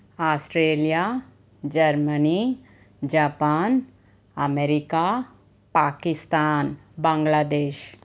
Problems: constant background noise